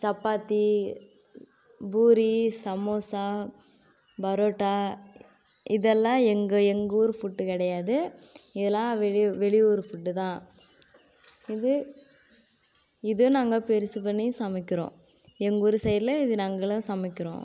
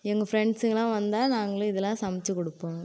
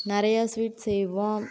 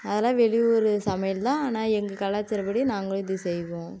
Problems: constant background noise